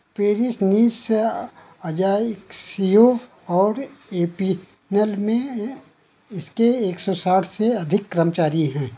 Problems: constant background noise